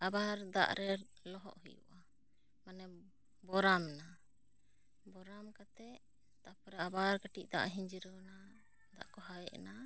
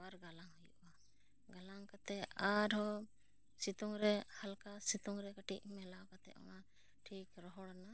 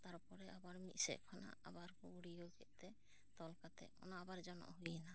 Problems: low volume